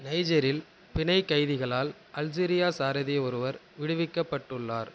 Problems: none marked